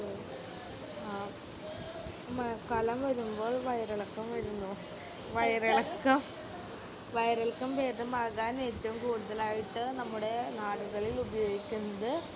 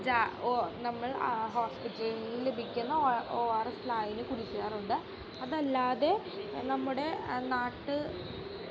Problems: constant background noise, background conversations at intervals, low volume